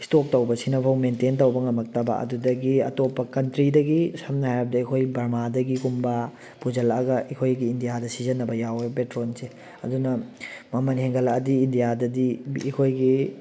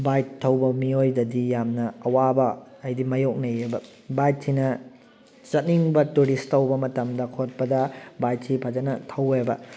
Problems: background conversations at intervals